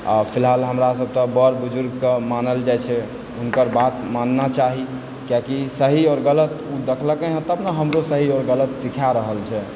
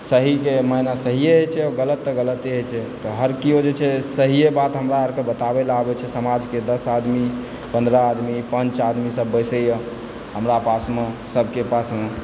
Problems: constant background noise